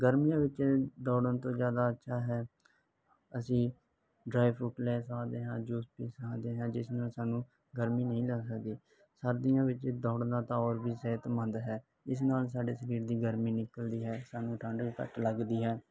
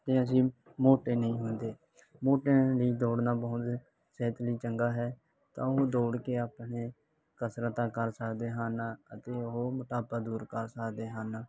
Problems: background sounds at intervals